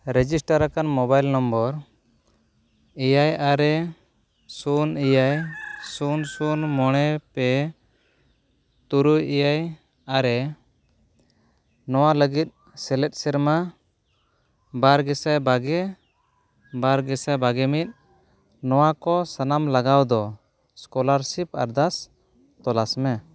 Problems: none marked